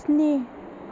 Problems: none marked